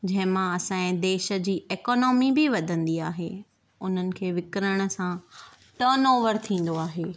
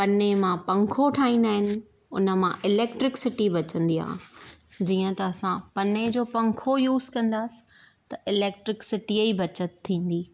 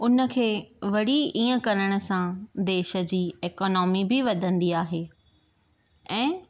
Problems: none marked